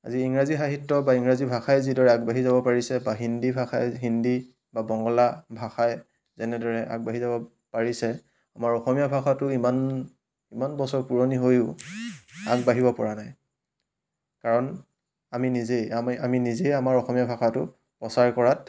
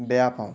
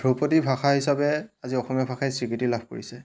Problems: none marked